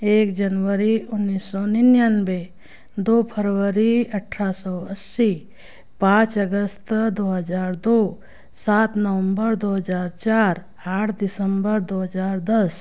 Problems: none marked